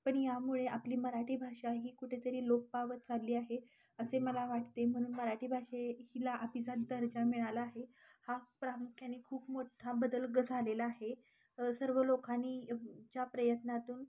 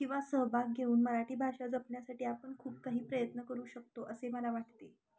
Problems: constant background noise